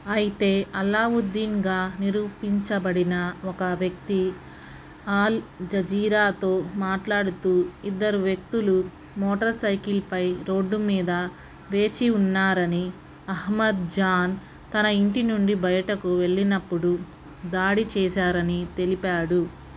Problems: constant background noise